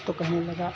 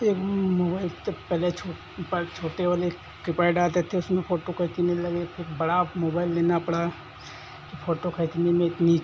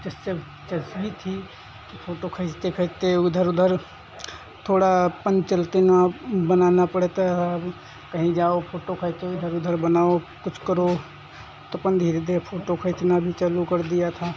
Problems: constant background noise